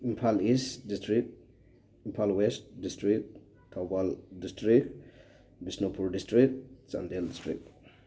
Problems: none marked